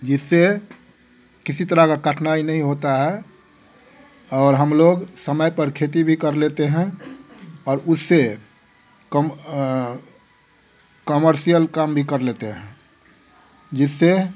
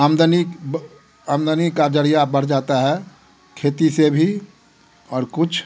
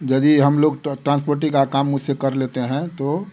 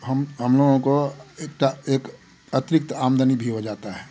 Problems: none marked